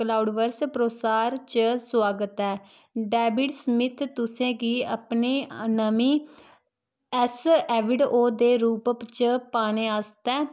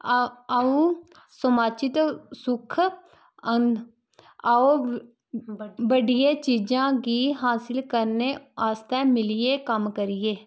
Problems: constant background noise